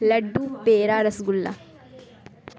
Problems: constant background noise